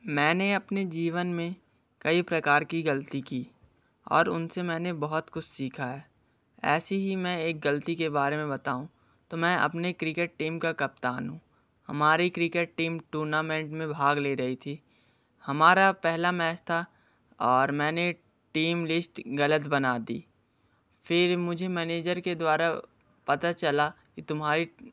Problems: background sounds at intervals